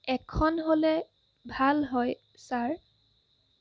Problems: constant background noise